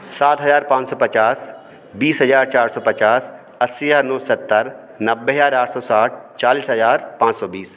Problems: background sounds at intervals